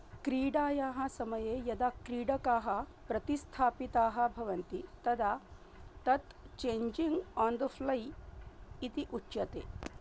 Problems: low volume